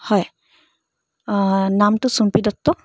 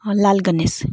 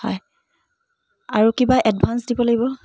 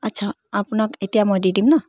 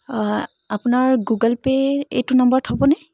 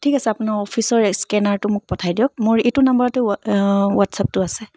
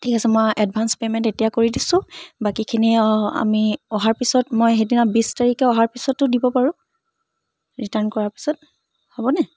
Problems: background sounds at intervals